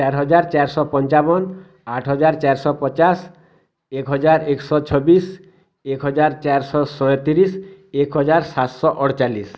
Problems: none marked